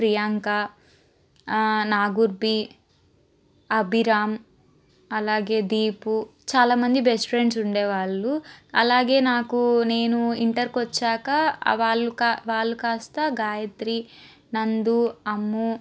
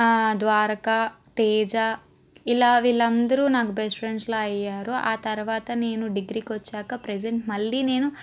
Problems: constant background noise